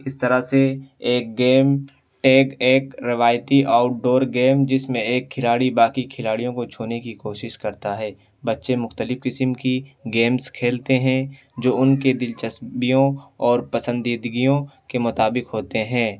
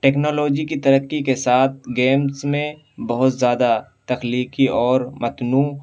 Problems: none marked